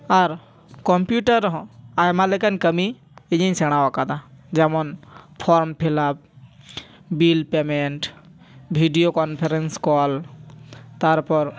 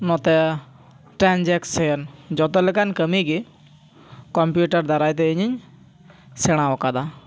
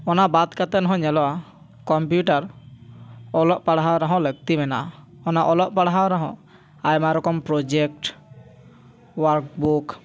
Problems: background conversations at intervals